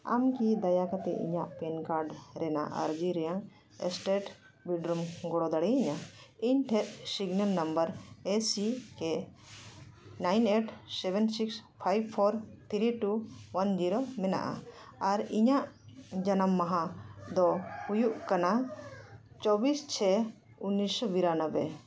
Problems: constant background noise